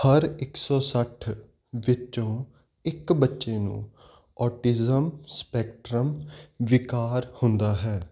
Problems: none marked